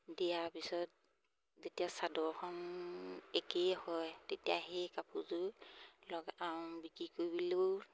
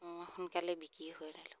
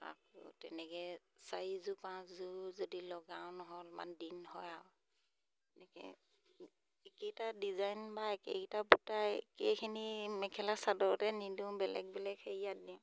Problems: none marked